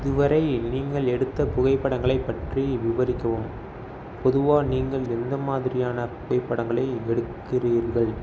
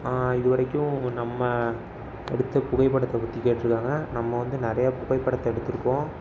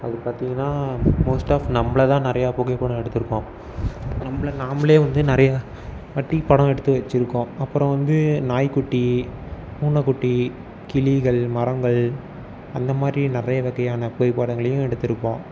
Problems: background sounds at intervals